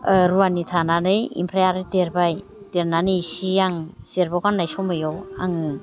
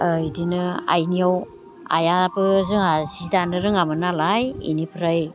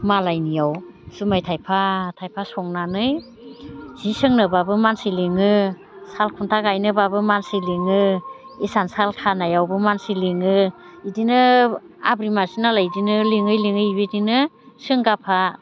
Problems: constant background noise